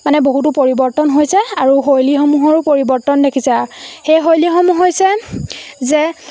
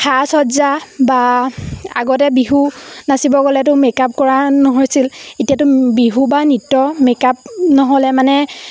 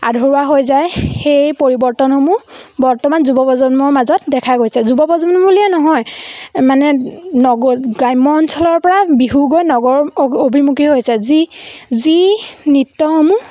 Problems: constant background noise